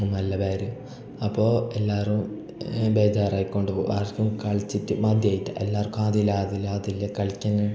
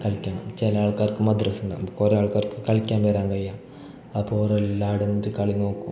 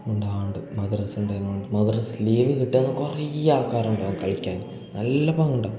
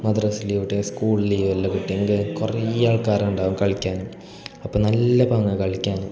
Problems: none marked